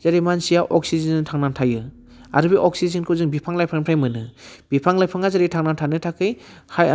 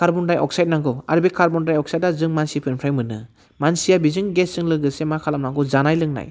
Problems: constant background noise